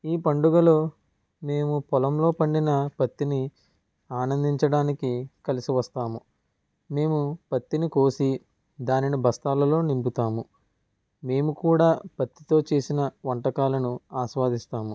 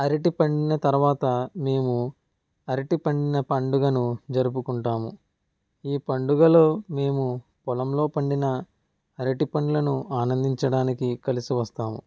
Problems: none marked